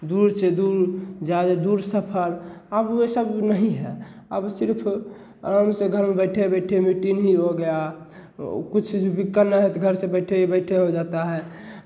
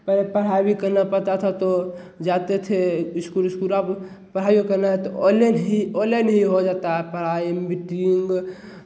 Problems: none marked